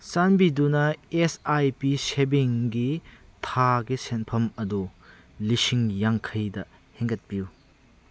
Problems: none marked